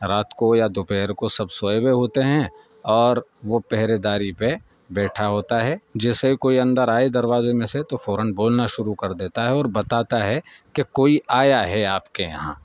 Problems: background sounds at intervals